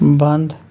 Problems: none marked